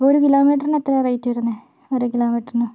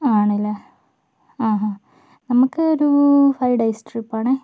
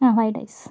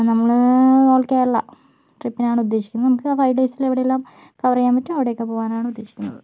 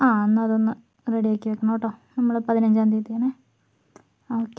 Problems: none marked